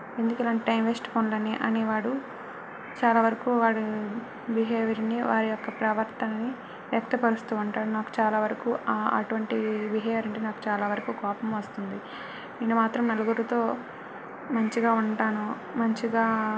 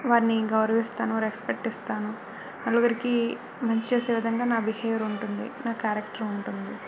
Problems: constant background noise